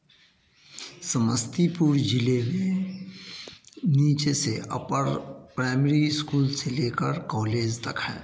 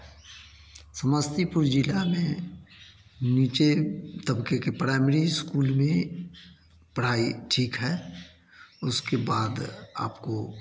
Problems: none marked